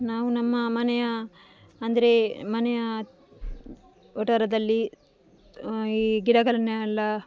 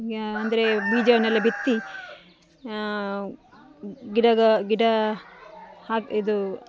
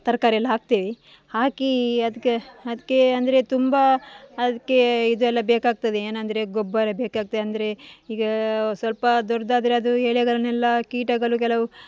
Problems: none marked